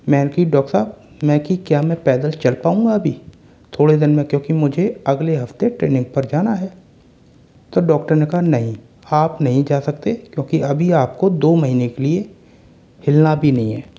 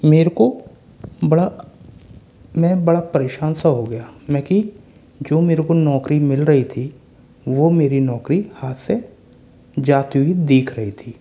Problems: constant background noise